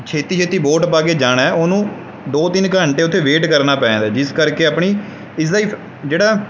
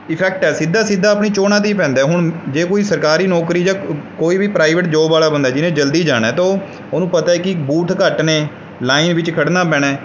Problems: background sounds at intervals